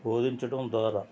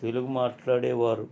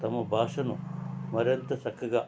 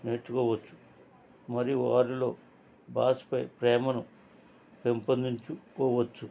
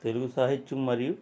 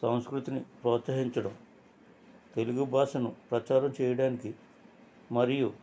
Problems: constant background noise, background conversations at intervals